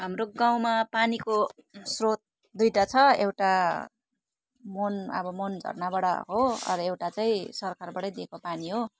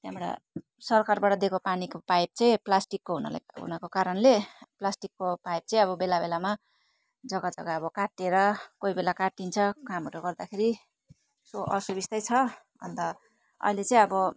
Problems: continuous background conversations